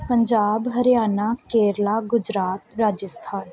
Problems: background conversations at intervals